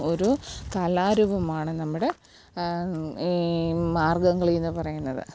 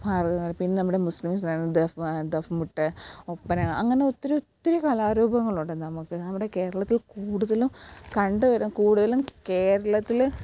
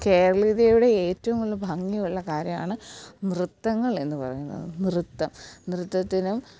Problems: background sounds at intervals